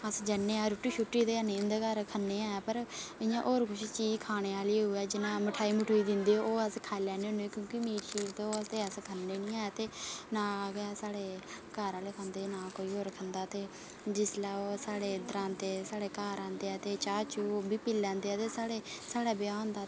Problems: constant background noise